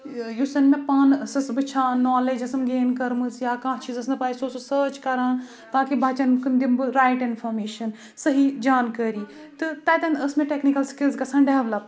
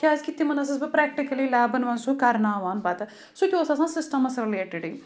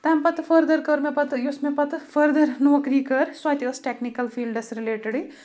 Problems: background sounds at intervals